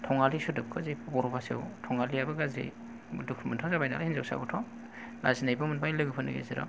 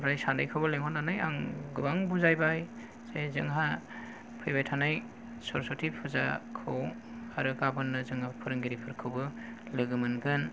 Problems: low volume